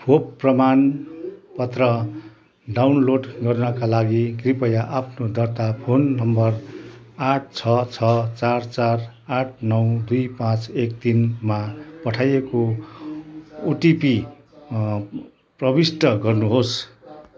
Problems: none marked